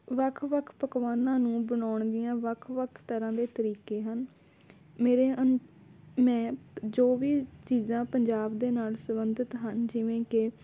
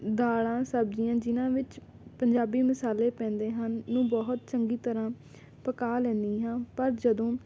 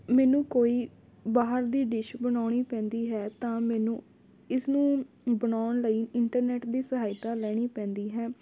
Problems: background sounds at intervals